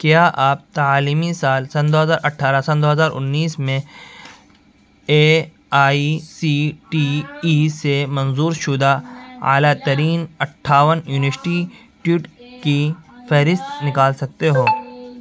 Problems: constant background noise, continuous background conversations